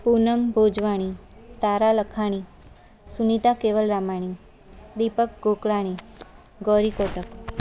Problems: constant background noise